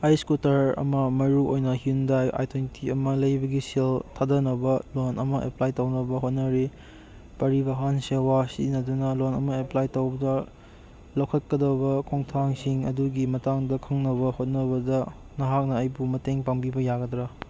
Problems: none marked